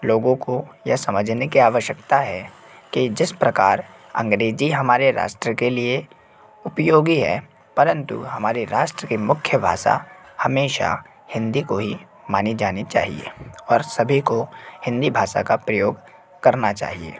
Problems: constant background noise